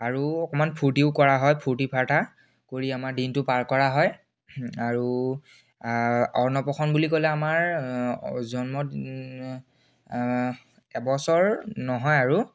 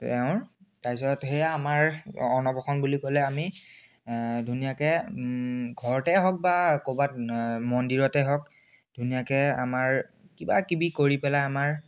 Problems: none marked